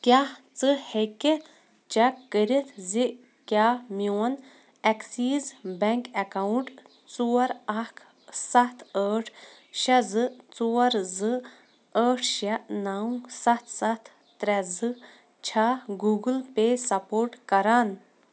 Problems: constant background noise